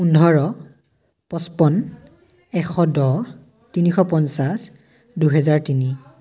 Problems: background conversations at intervals